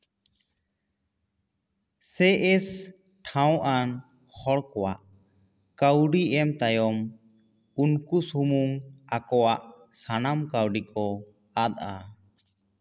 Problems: echo